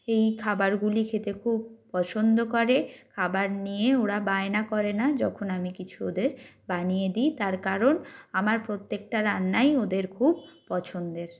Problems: none marked